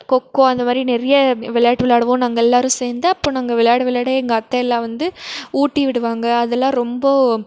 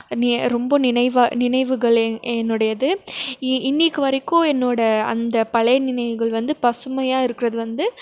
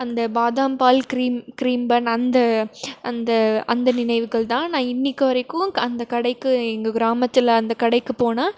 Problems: none marked